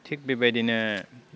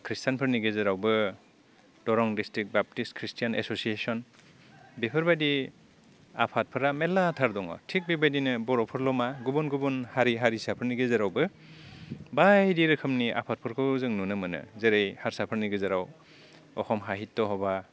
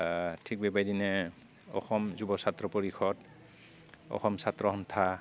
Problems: none marked